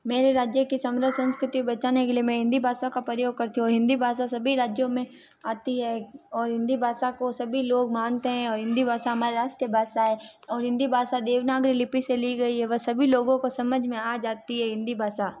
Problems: background sounds at intervals